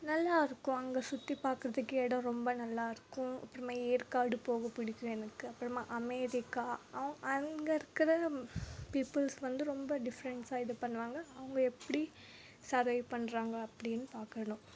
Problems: background sounds at intervals